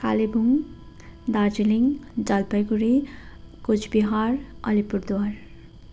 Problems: constant background noise